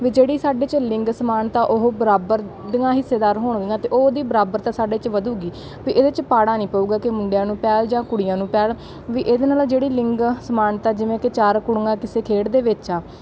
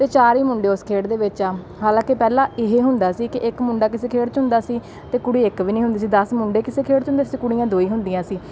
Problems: background sounds at intervals